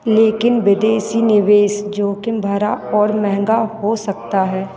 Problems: constant background noise